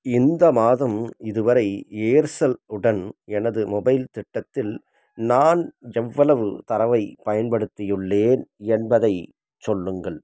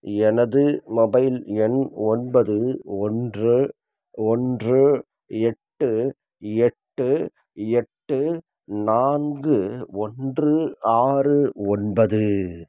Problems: none marked